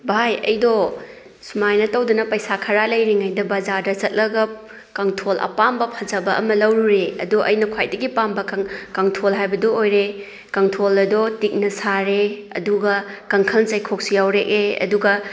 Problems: none marked